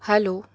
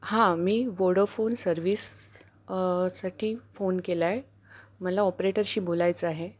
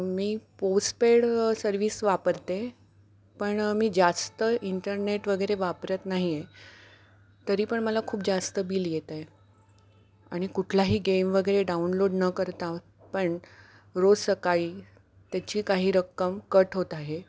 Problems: background sounds at intervals